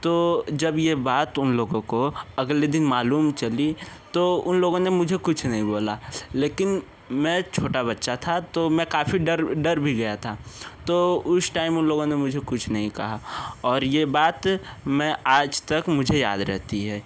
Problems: constant background noise, background conversations at intervals